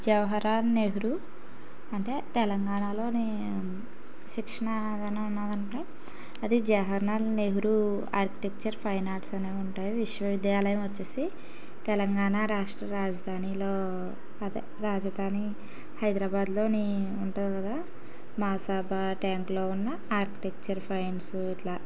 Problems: background sounds at intervals